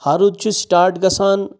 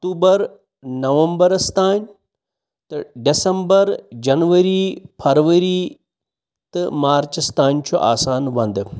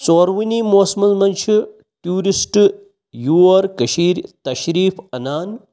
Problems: background sounds at intervals